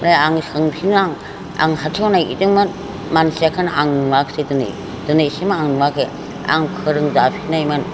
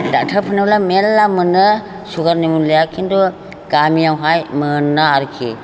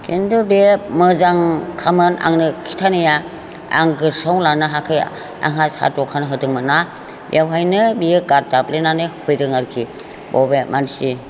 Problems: constant background noise